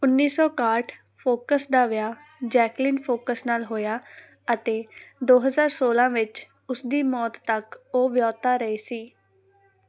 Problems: background sounds at intervals